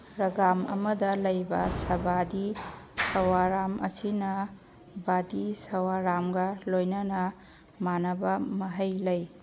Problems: none marked